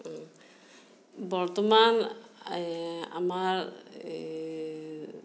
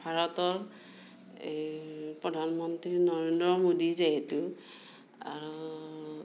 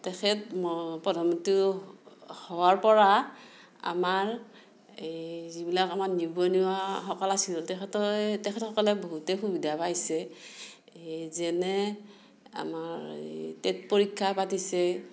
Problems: none marked